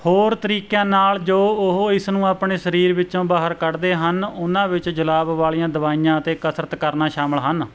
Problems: none marked